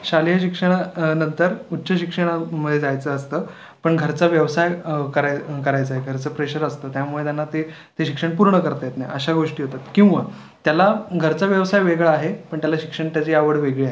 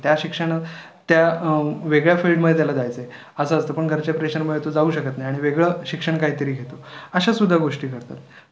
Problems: constant background noise